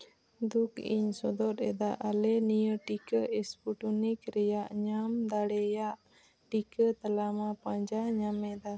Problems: constant background noise, low volume